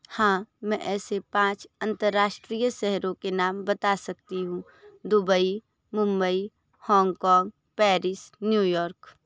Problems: none marked